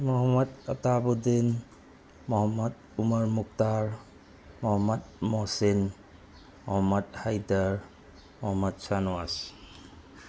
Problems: constant background noise